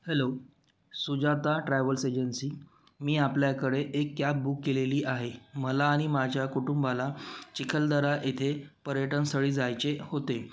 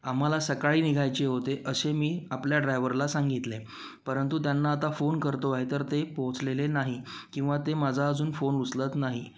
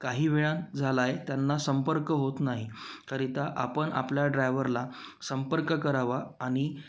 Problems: constant background noise